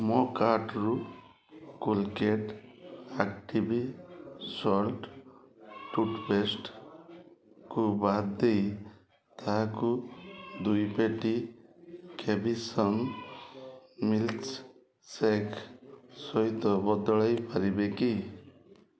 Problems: constant background noise